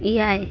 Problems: continuous background conversations